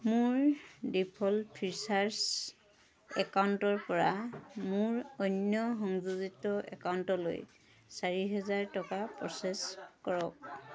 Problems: constant background noise, background conversations at intervals